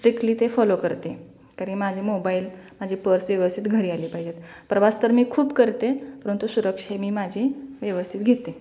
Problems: constant background noise, echo